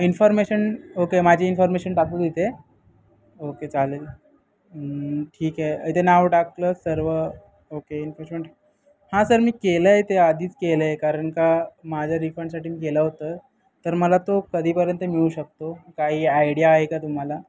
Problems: background sounds at intervals, continuous background conversations